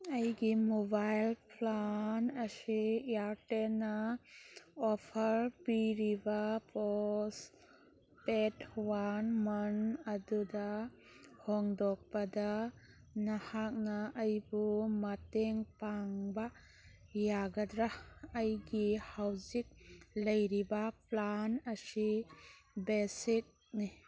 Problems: background sounds at intervals